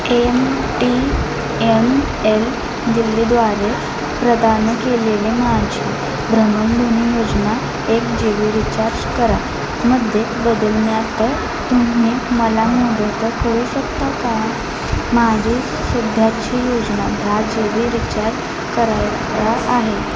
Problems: constant background noise, continuous background conversations